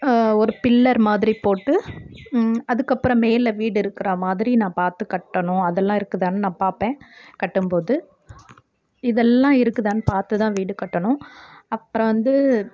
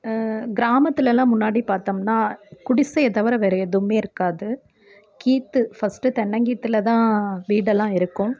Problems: none marked